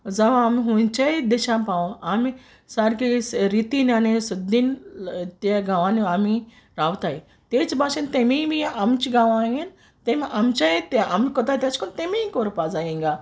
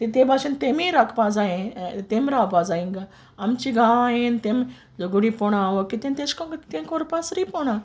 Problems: none marked